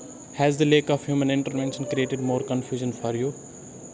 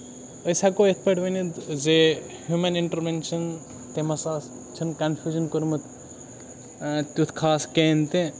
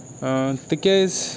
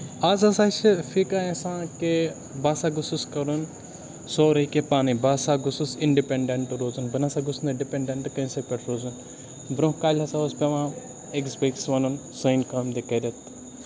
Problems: constant background noise, continuous background conversations